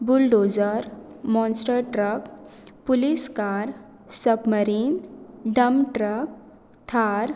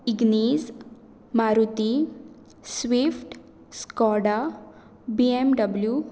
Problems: none marked